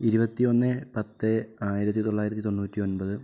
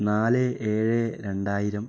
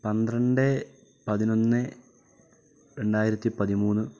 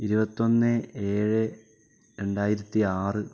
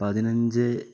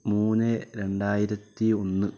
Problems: low volume